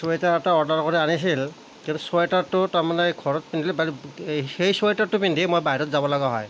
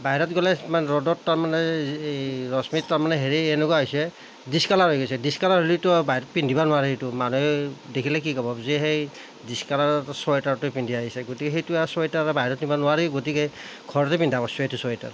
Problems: none marked